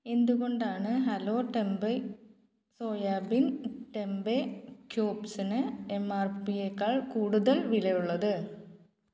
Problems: none marked